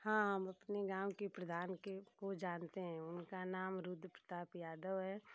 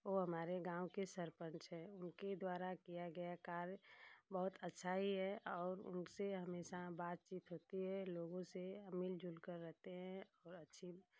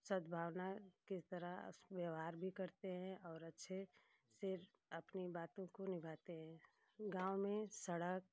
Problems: constant background noise